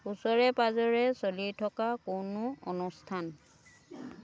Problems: constant background noise